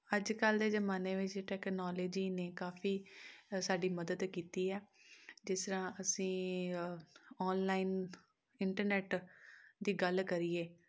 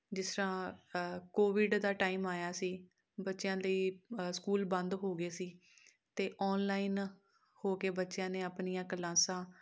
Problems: none marked